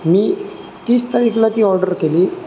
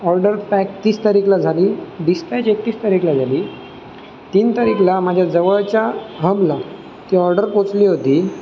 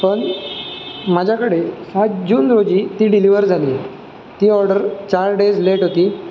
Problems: constant background noise